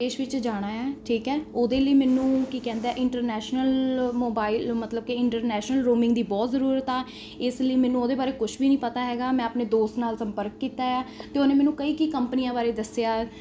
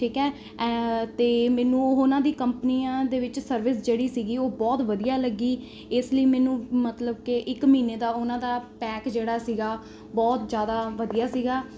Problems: constant background noise